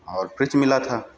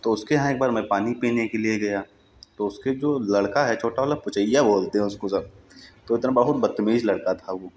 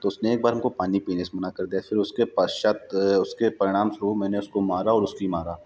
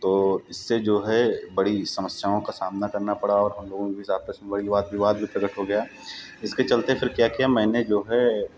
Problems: background sounds at intervals